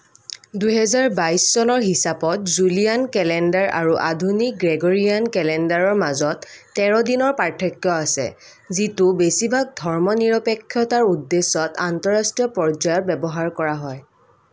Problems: none marked